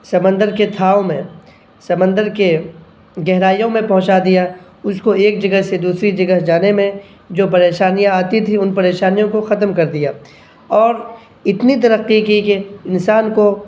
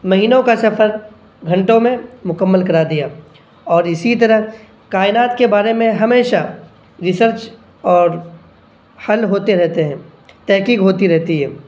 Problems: none marked